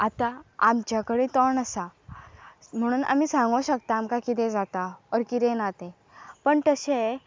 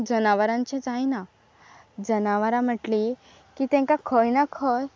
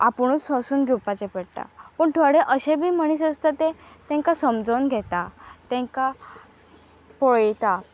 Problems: constant background noise